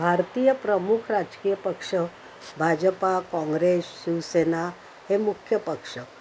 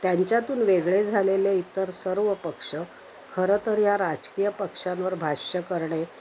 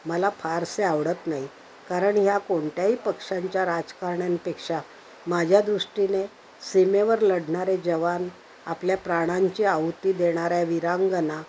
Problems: constant background noise, background conversations at intervals